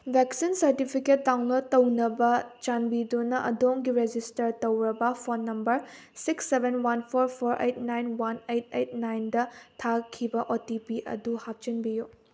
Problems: none marked